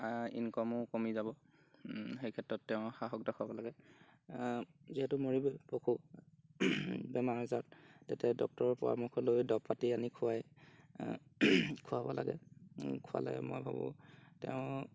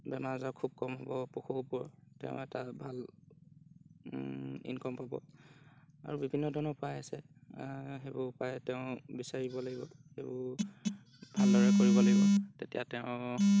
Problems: none marked